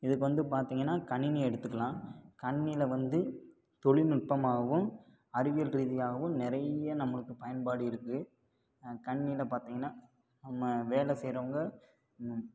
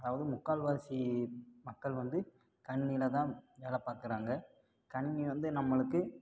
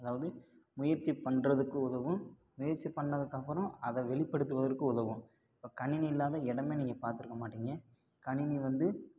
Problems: low volume